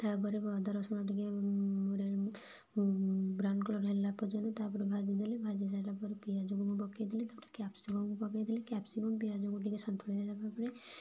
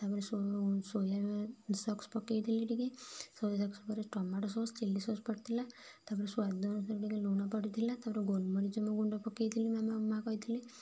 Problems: none marked